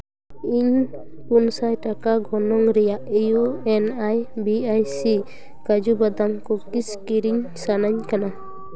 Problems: continuous background conversations